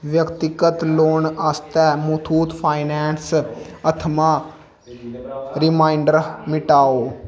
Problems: background sounds at intervals